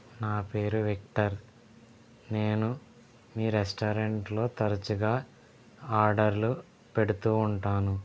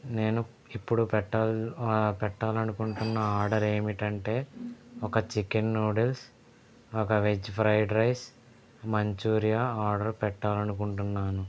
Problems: background sounds at intervals